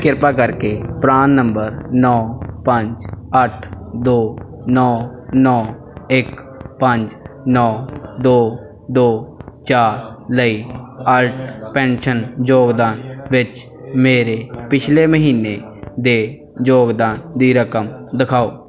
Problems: background sounds at intervals, background conversations at intervals